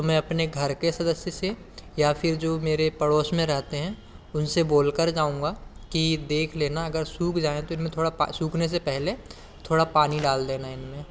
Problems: background sounds at intervals